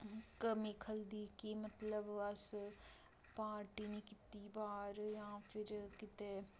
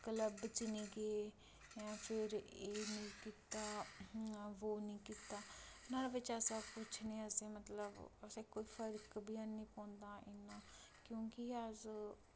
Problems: low volume